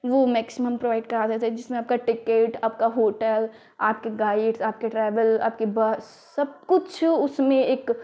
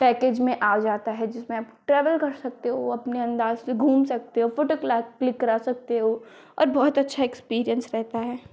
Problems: constant background noise